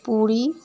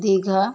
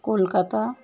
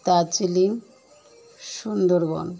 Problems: constant background noise